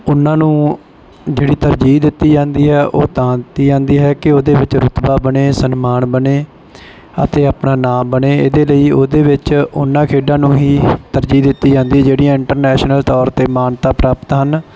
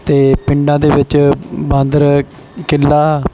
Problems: background sounds at intervals